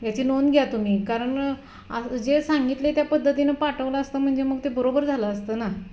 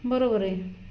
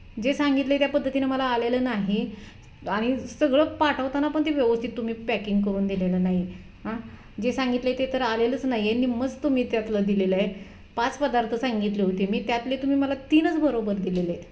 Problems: background sounds at intervals